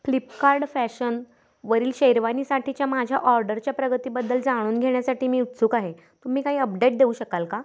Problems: background sounds at intervals